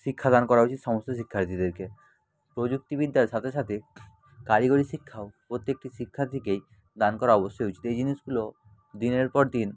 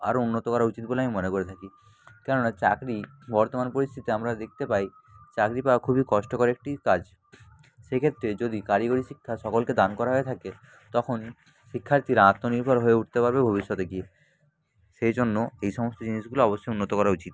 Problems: constant background noise, background conversations at intervals